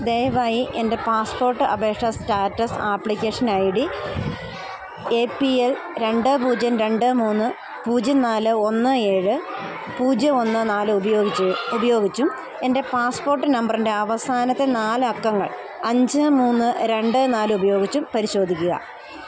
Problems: continuous background conversations